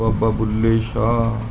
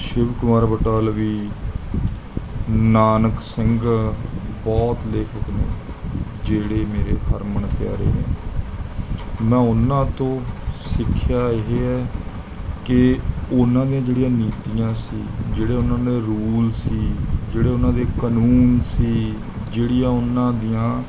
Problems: background sounds at intervals